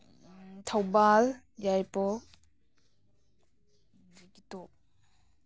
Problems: none marked